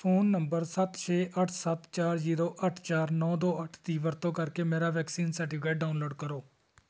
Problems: none marked